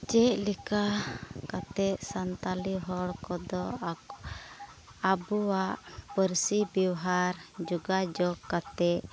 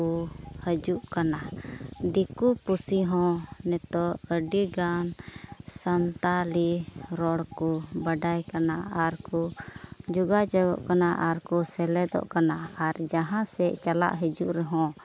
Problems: background sounds at intervals